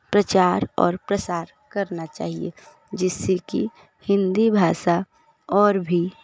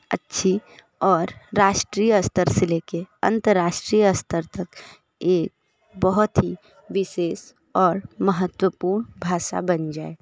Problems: constant background noise, continuous background conversations